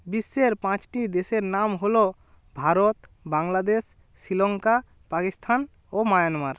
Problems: constant background noise